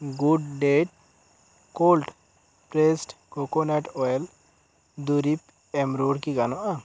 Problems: none marked